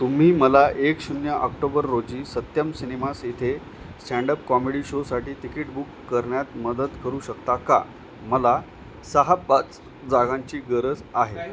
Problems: none marked